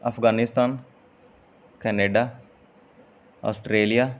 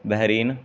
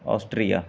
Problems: background sounds at intervals